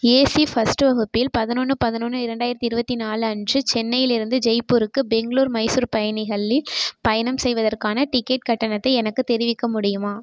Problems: constant background noise